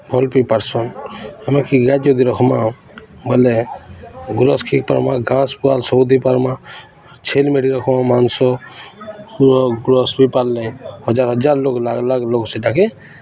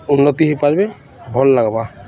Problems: constant background noise, continuous background conversations